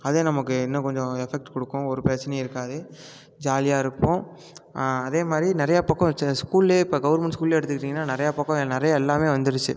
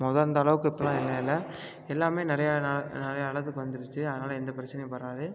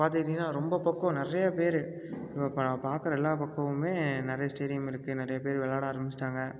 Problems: none marked